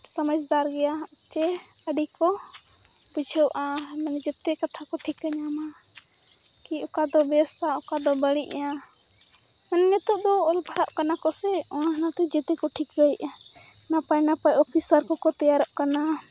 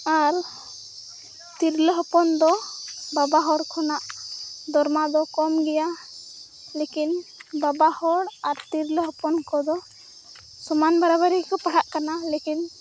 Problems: constant background noise, continuous background conversations